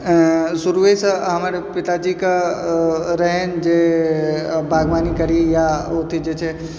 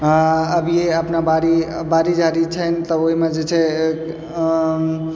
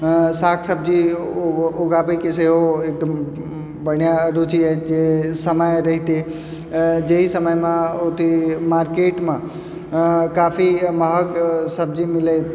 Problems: none marked